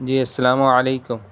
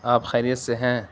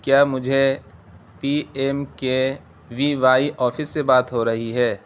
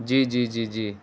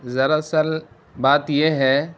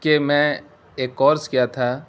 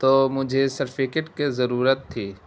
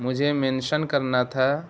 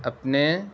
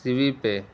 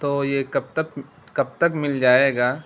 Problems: constant background noise